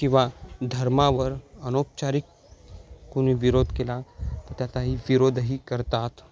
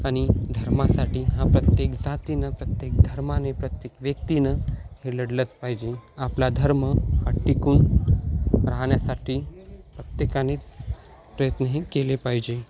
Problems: constant background noise, continuous background conversations